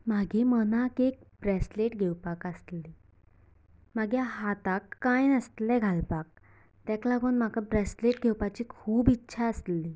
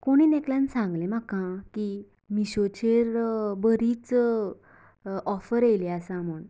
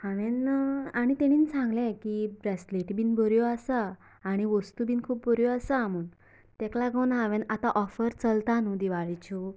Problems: none marked